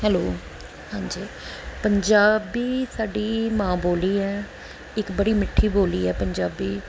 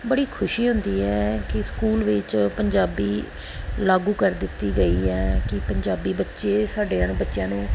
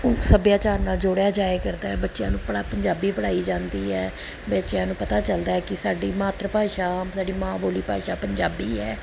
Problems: background sounds at intervals